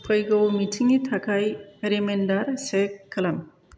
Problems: constant background noise